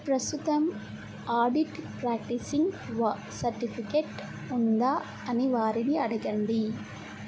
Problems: low volume